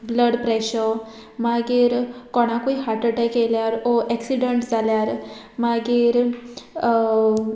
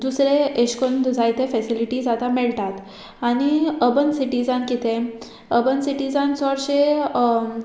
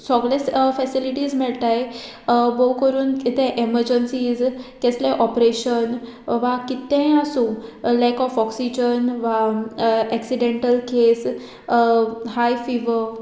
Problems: none marked